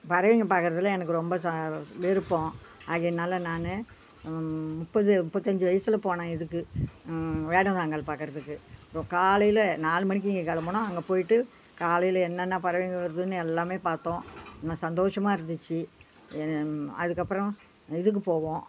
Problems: background sounds at intervals